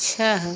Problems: none marked